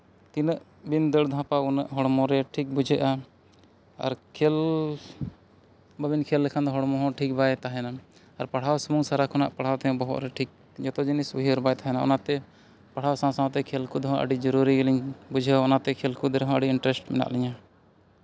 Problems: none marked